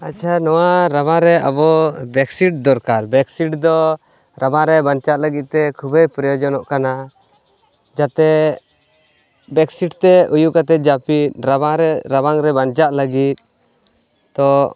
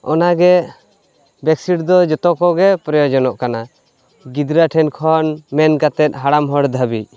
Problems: none marked